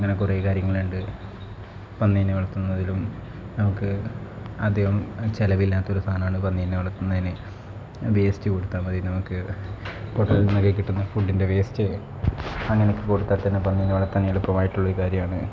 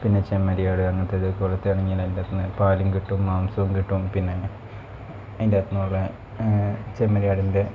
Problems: constant background noise, low volume